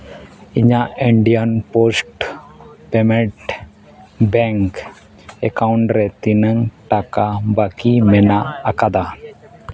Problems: background conversations at intervals